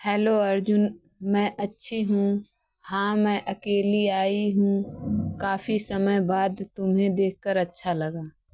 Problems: background sounds at intervals